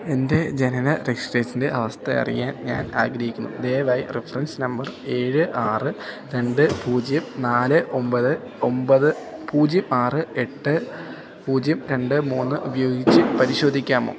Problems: background sounds at intervals